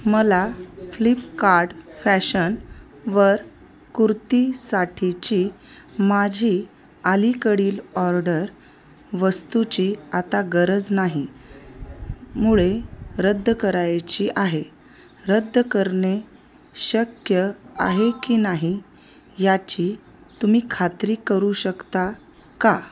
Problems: constant background noise, background conversations at intervals